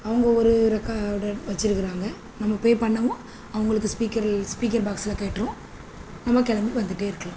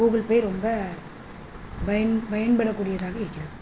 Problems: constant background noise